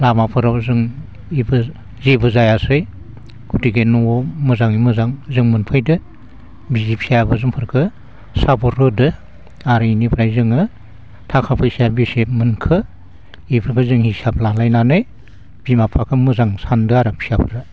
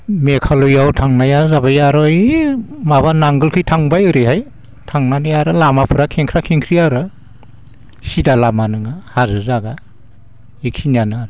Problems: constant background noise